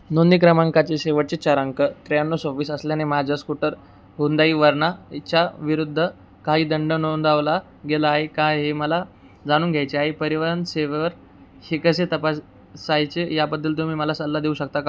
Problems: background sounds at intervals